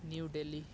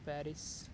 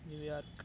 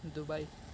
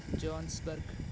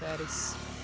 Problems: background sounds at intervals